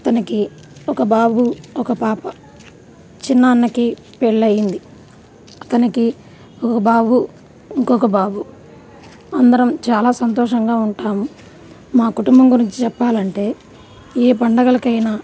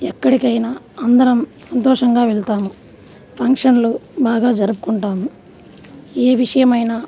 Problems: none marked